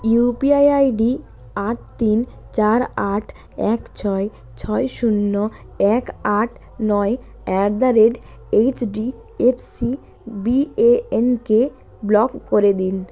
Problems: constant background noise